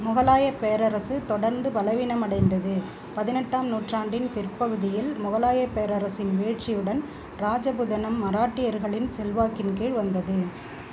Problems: none marked